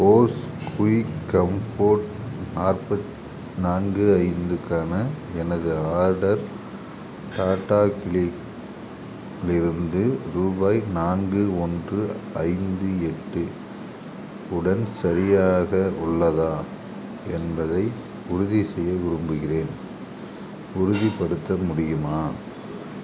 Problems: background sounds at intervals